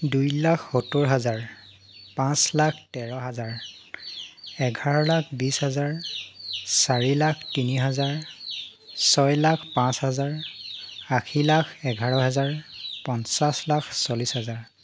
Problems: constant background noise